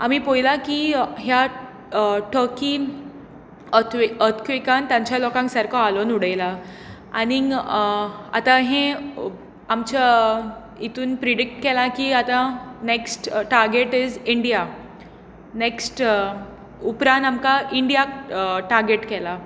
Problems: constant background noise